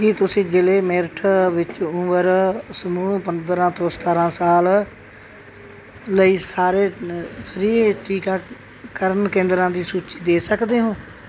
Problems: background sounds at intervals